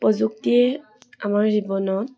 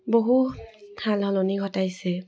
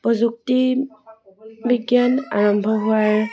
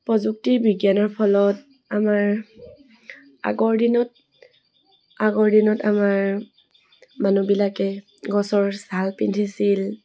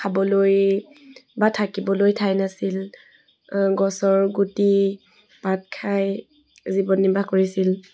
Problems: none marked